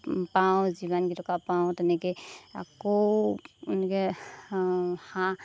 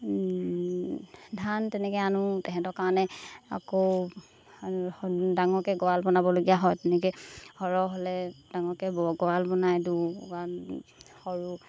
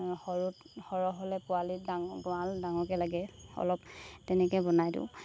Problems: constant background noise